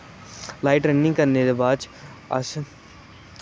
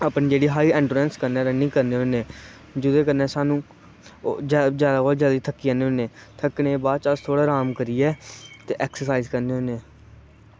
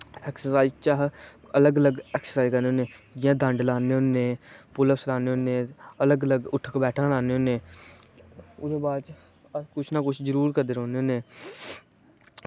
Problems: constant background noise